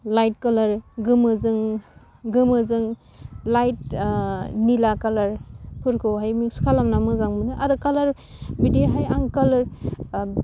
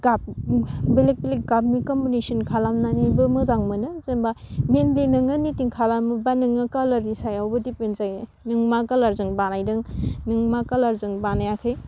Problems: low volume